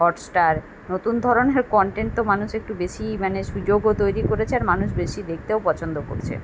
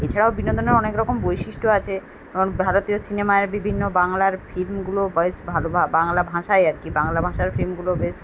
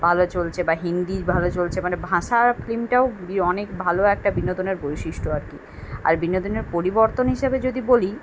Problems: none marked